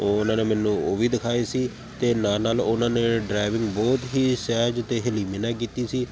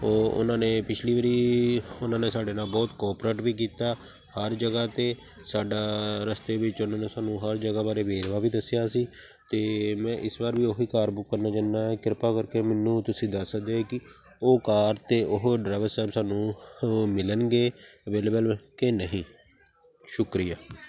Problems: constant background noise